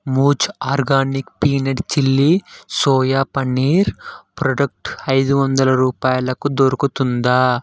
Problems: none marked